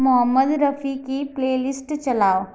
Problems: background sounds at intervals